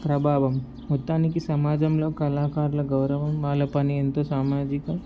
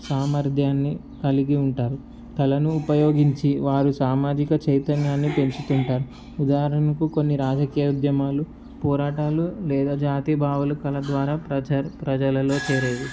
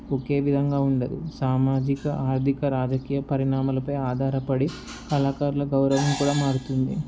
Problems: background sounds at intervals